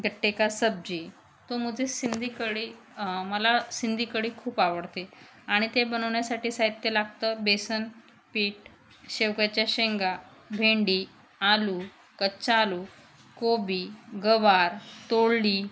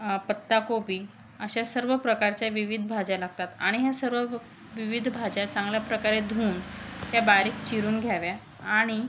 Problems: none marked